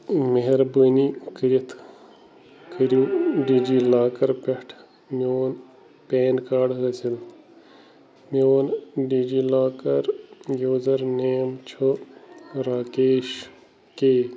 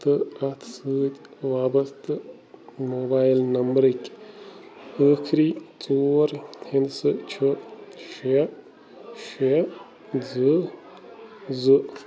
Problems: constant background noise